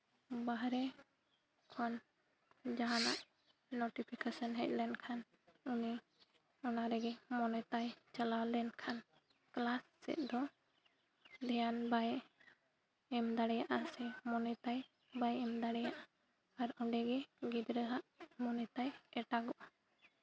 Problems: none marked